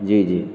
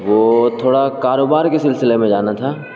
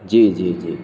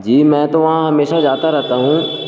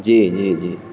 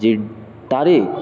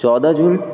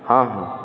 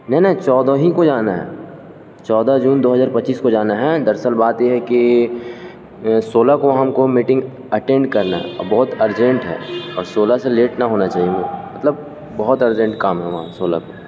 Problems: constant background noise